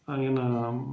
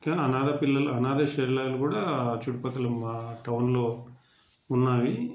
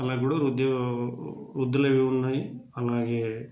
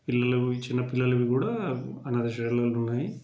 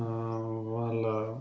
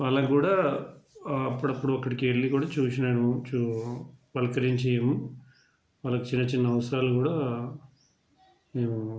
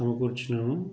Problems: background conversations at intervals